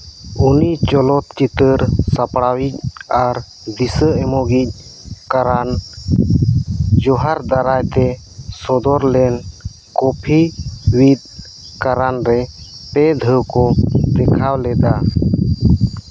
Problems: background sounds at intervals